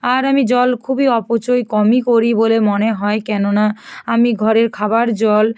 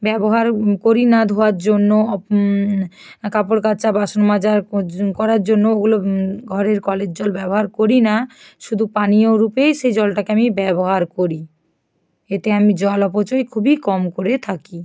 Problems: background sounds at intervals